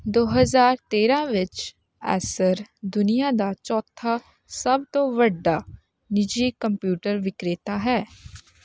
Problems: none marked